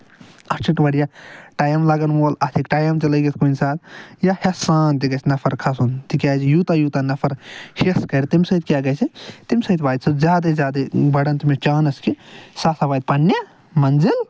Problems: none marked